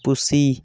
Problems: none marked